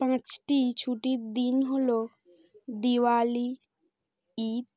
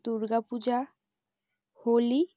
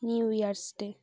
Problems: none marked